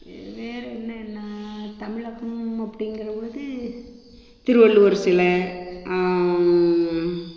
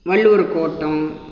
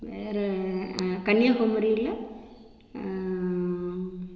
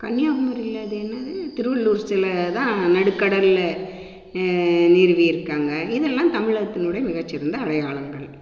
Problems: constant background noise